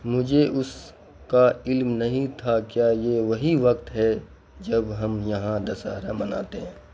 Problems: constant background noise